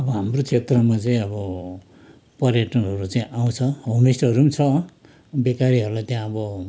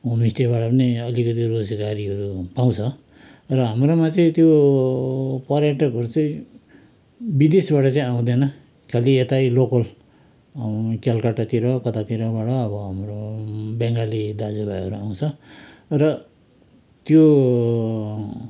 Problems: background conversations at intervals